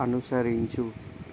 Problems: constant background noise